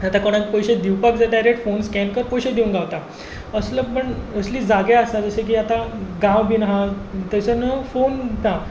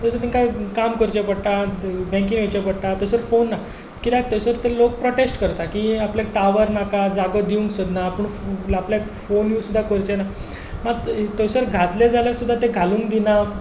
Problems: background sounds at intervals